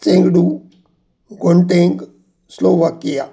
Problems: background sounds at intervals